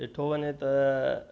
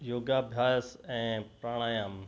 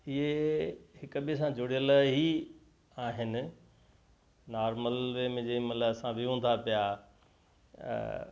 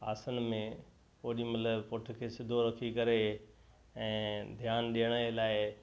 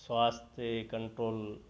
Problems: constant background noise, echo